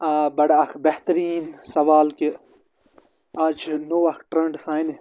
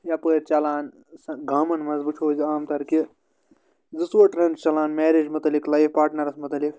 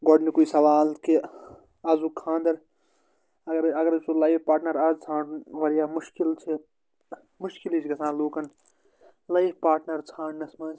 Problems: constant background noise